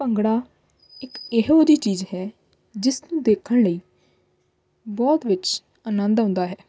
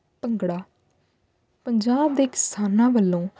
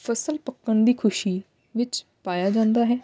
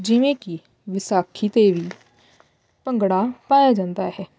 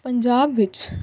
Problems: none marked